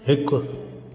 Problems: echo